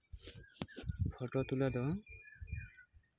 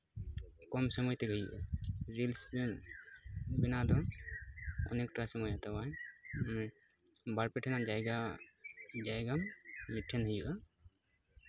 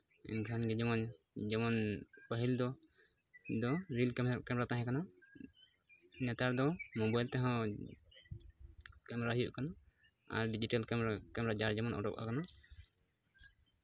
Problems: none marked